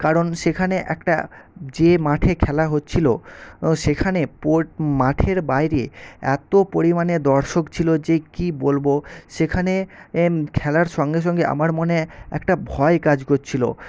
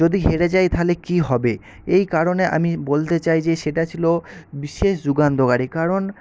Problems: constant background noise